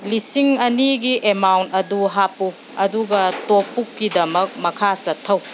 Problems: background sounds at intervals